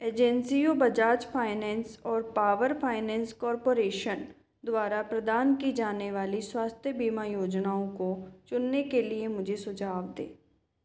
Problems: background sounds at intervals, echo